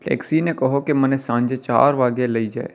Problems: none marked